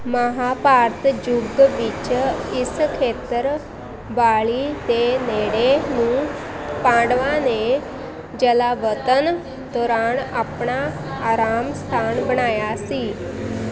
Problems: constant background noise, continuous background conversations